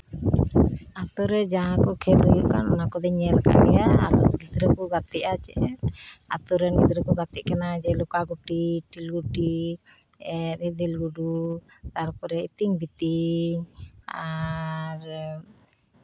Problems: none marked